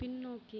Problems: low volume